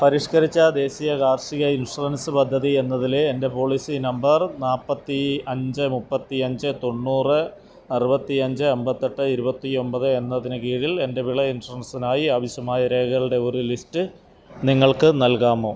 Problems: none marked